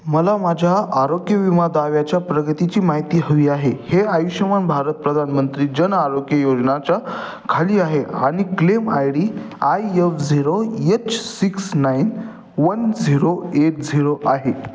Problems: background sounds at intervals